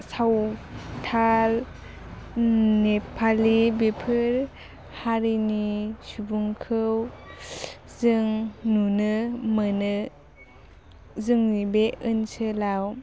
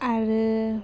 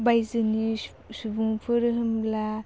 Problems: low volume